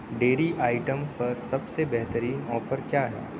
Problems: constant background noise, low volume